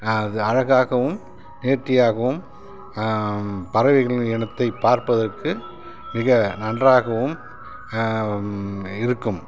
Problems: none marked